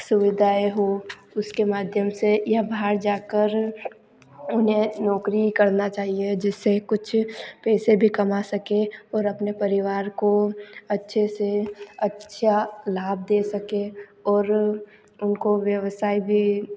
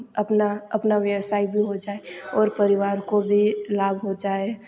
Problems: constant background noise